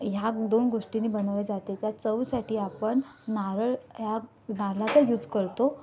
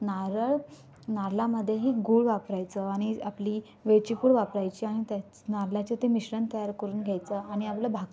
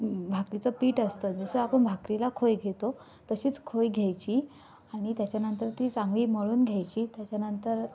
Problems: background sounds at intervals